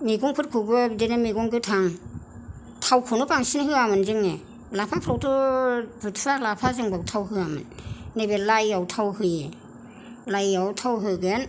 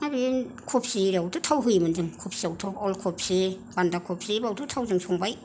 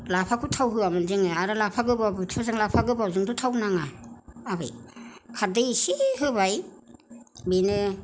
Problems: none marked